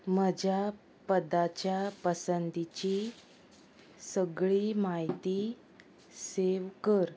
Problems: constant background noise